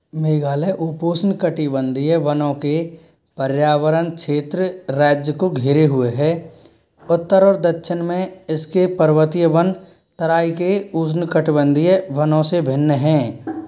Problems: background sounds at intervals